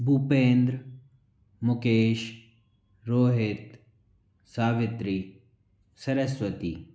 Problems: none marked